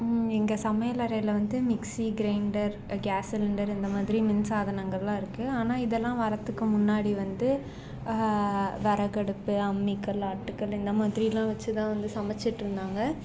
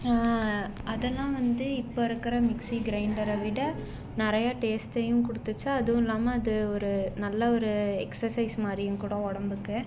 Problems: background sounds at intervals